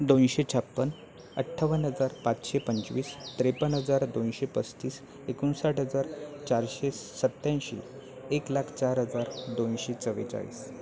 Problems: none marked